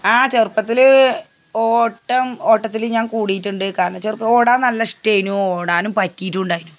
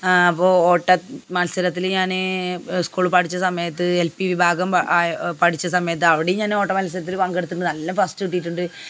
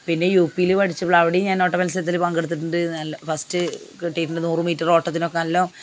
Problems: background sounds at intervals